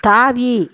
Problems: background sounds at intervals